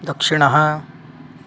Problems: constant background noise